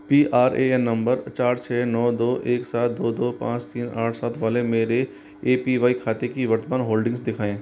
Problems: constant background noise